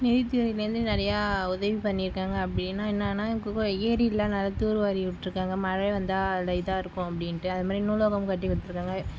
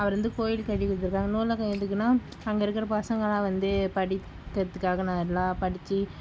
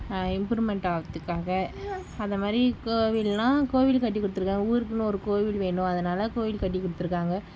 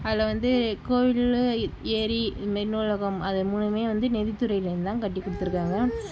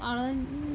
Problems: background sounds at intervals